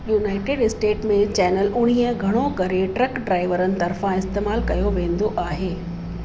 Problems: constant background noise, echo